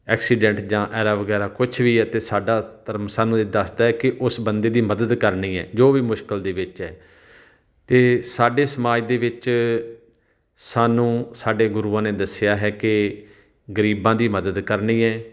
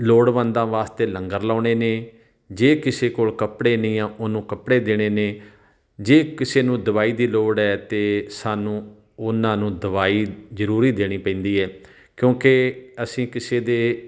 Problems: background sounds at intervals